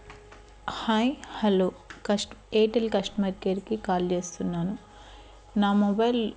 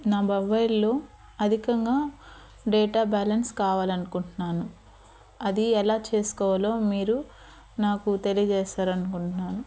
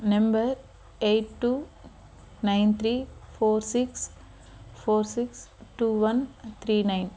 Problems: constant background noise